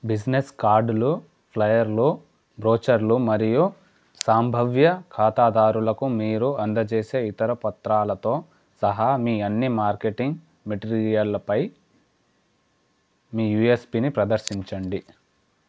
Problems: none marked